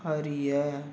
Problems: constant background noise